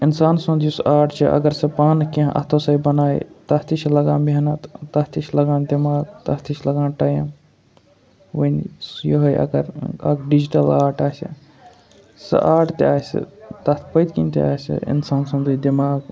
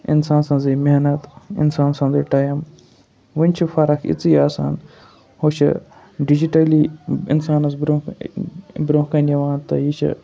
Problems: constant background noise